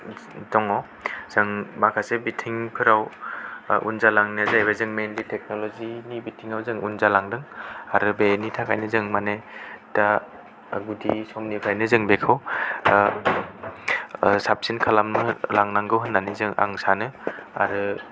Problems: none marked